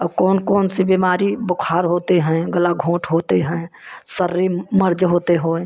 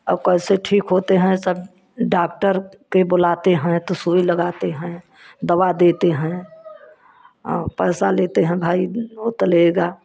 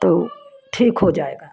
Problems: constant background noise